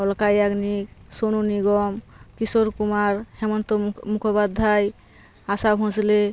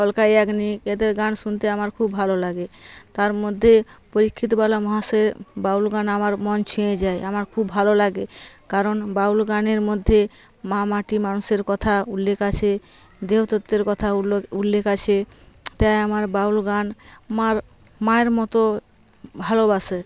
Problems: constant background noise